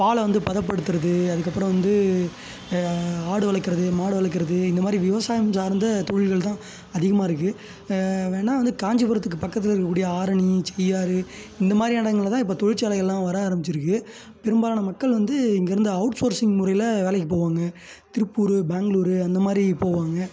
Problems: background sounds at intervals